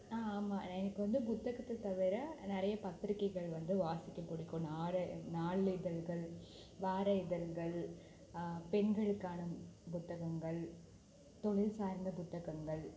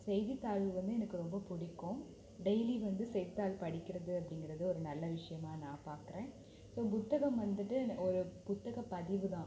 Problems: low volume